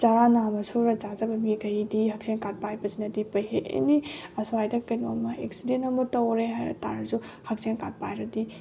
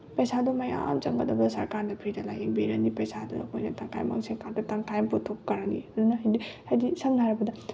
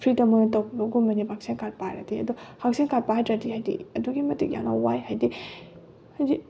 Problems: background sounds at intervals